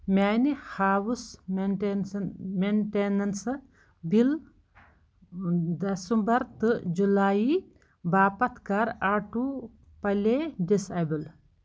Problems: background sounds at intervals